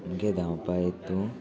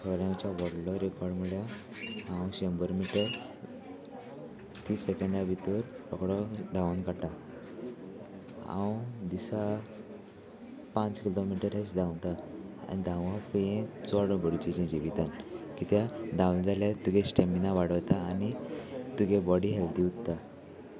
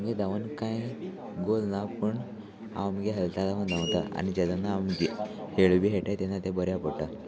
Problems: constant background noise, background conversations at intervals